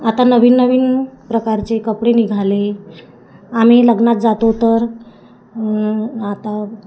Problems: constant background noise, background conversations at intervals